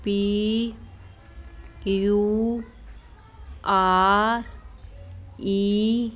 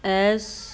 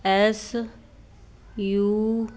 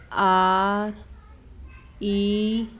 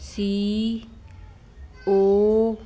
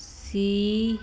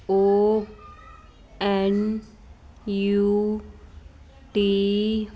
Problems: constant background noise